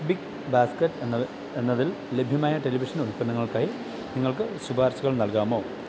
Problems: none marked